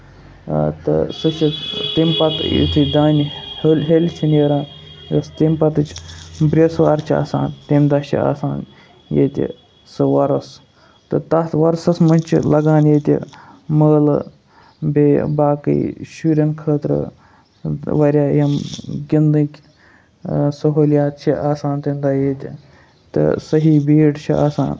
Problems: constant background noise